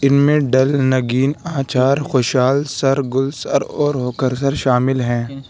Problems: background sounds at intervals